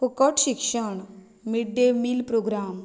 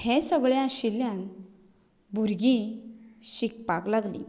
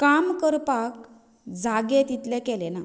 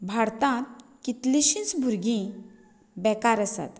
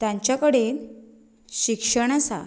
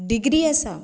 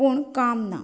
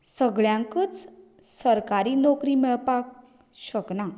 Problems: none marked